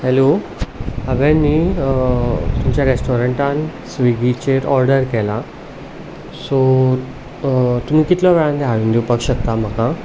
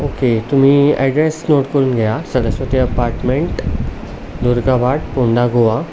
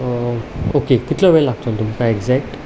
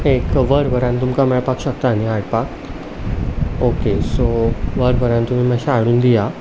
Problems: constant background noise, background conversations at intervals